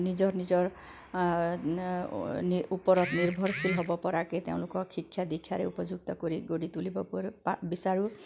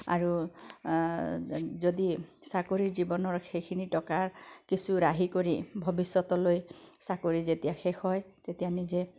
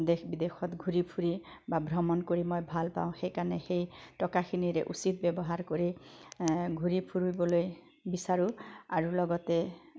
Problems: background sounds at intervals